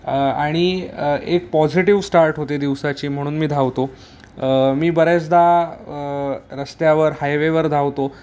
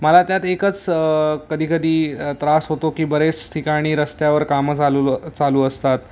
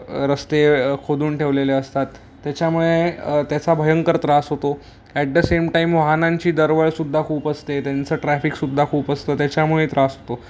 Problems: constant background noise